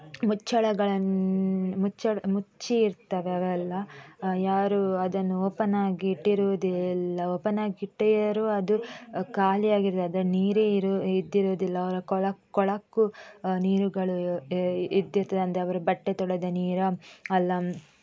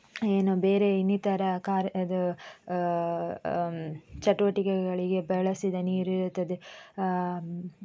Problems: none marked